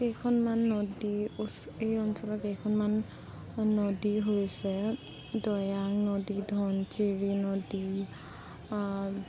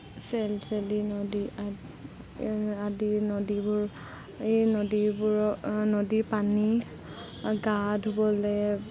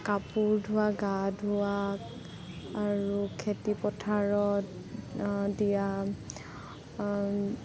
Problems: constant background noise